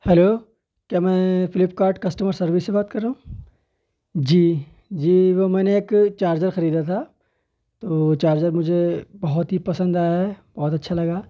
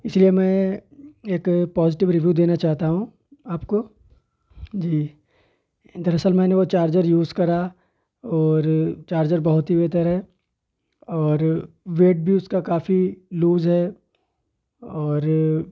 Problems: background sounds at intervals